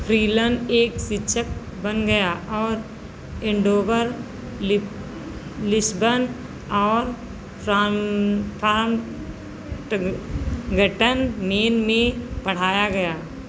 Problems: constant background noise